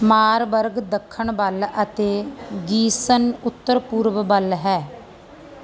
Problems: none marked